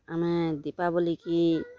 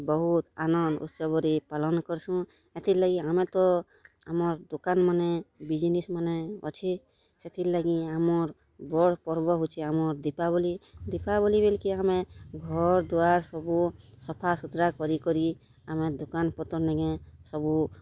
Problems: background sounds at intervals, background conversations at intervals